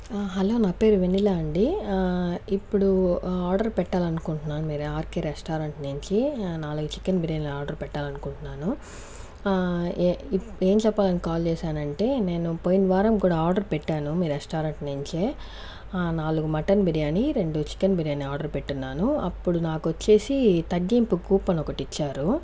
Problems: background sounds at intervals